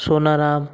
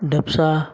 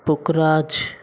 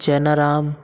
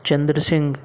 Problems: constant background noise